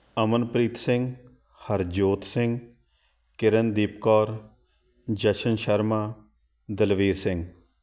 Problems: none marked